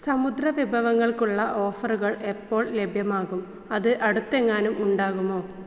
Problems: low volume